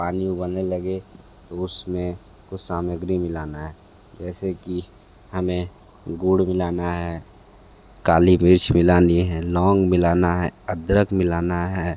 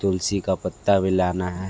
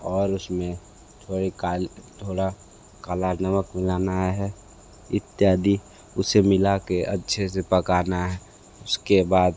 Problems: none marked